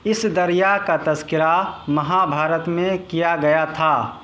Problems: constant background noise